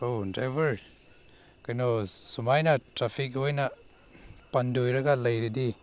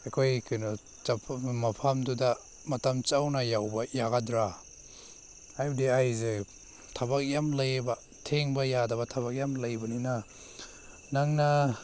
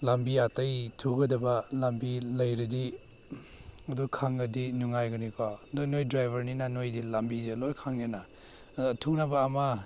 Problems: background sounds at intervals